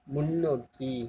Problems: low volume